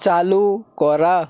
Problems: none marked